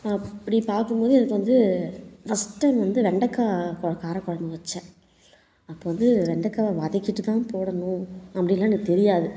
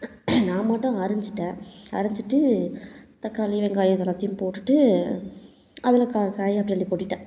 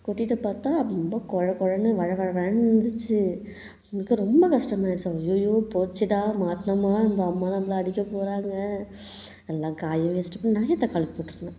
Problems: none marked